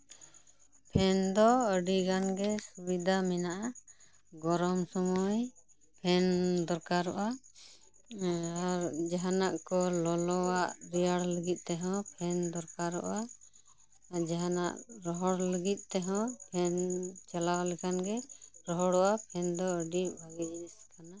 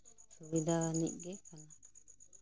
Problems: background sounds at intervals, background conversations at intervals